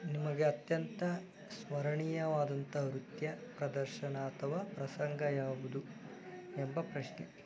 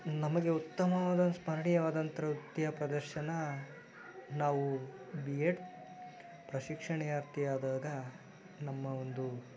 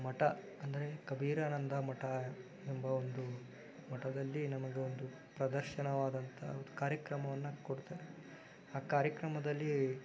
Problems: background sounds at intervals